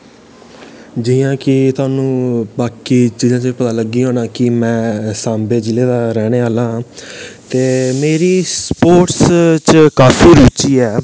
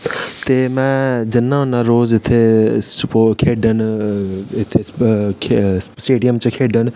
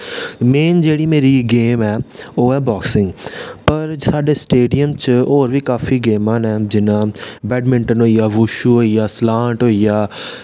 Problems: none marked